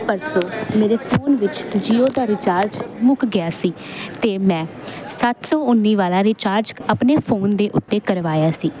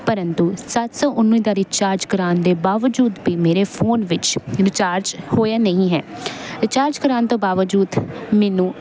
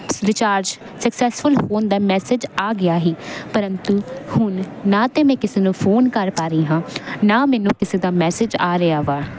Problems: constant background noise